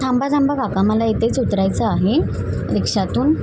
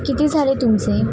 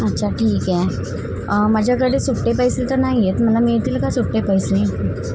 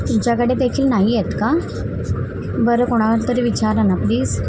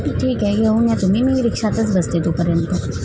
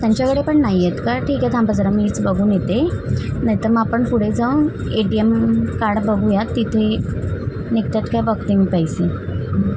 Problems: constant background noise